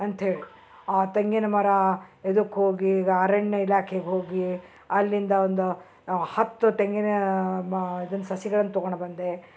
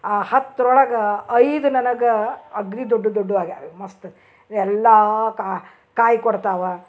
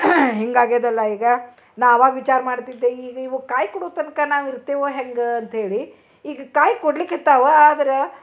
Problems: none marked